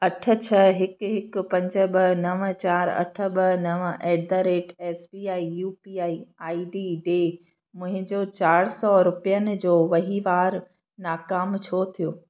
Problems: constant background noise, echo